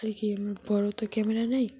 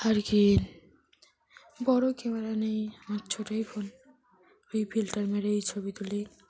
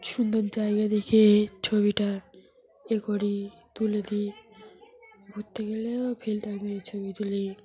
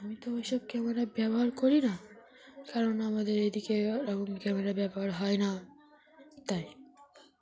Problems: none marked